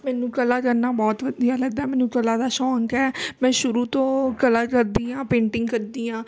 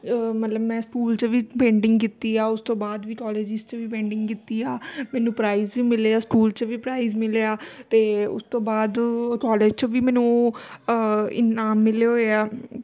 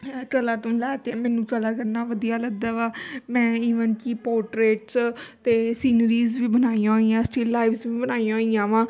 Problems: constant background noise, background conversations at intervals